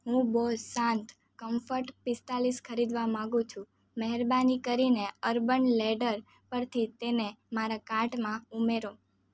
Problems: none marked